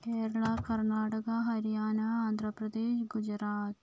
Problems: low volume